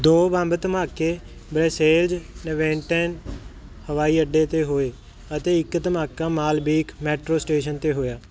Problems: none marked